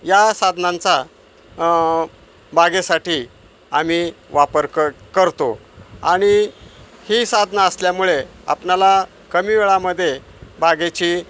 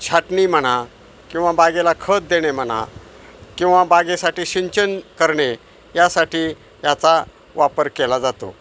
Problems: none marked